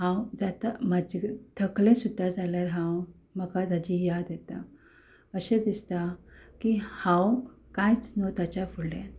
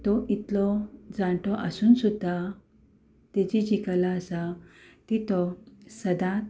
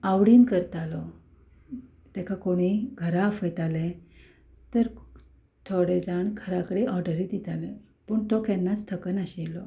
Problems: background sounds at intervals